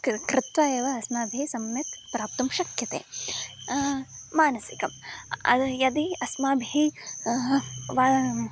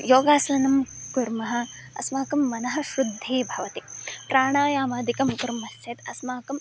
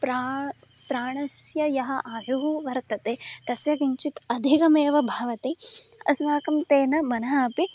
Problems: none marked